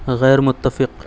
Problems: none marked